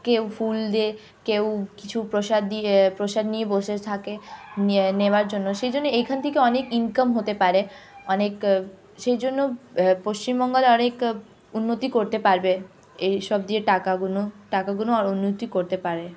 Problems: none marked